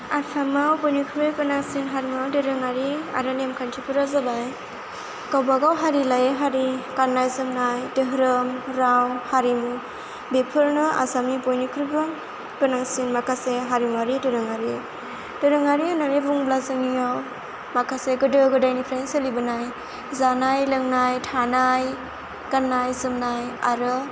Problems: constant background noise